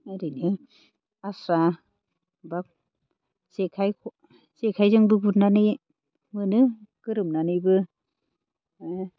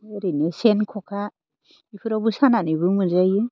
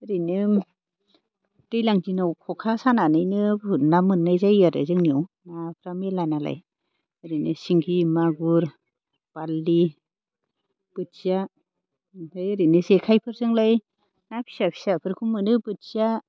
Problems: none marked